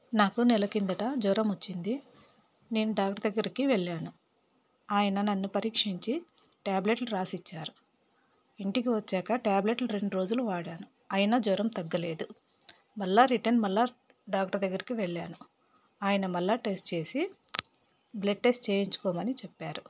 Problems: none marked